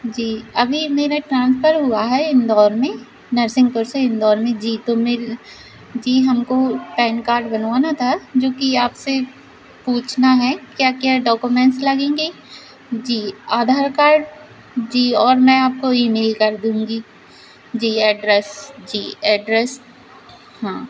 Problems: constant background noise